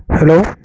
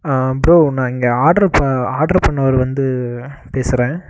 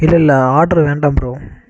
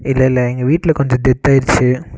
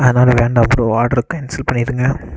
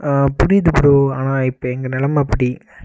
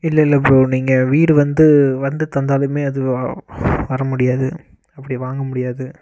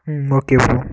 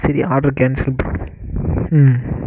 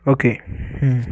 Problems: constant background noise